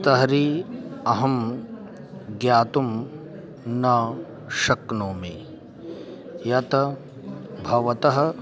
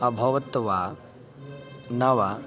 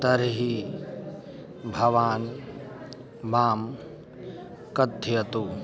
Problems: continuous background conversations